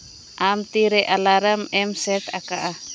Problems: background sounds at intervals